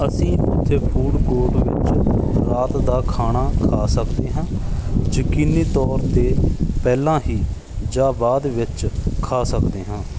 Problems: background sounds at intervals